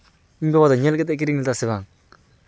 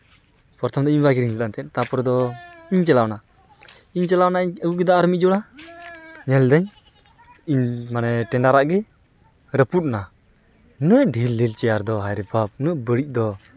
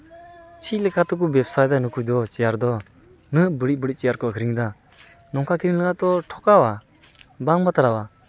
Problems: none marked